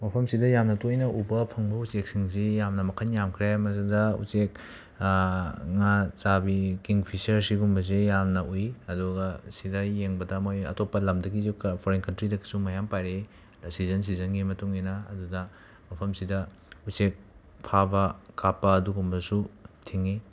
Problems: constant background noise